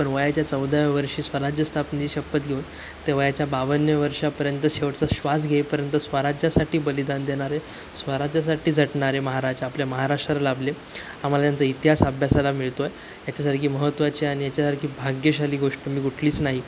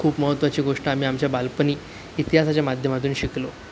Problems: constant background noise, background conversations at intervals